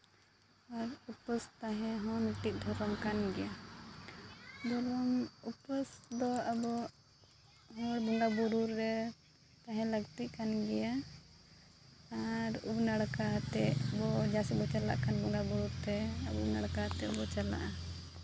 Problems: constant background noise, low volume